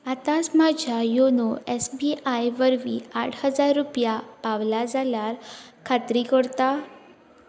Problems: none marked